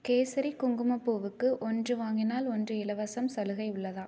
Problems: none marked